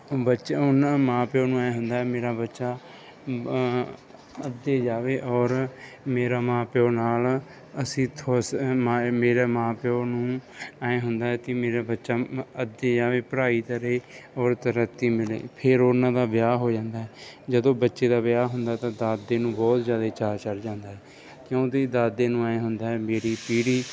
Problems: none marked